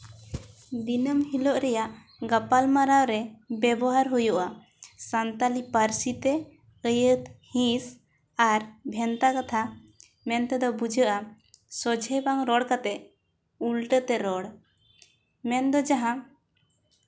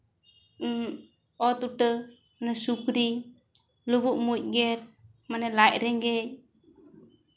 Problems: none marked